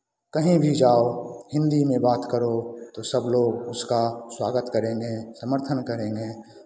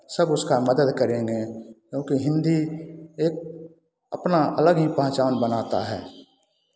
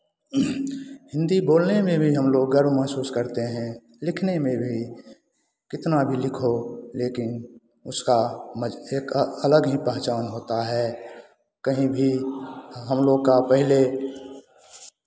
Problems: constant background noise